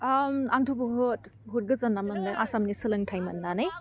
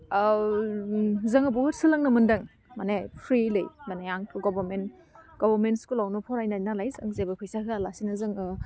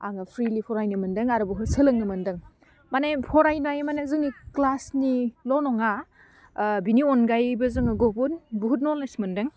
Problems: constant background noise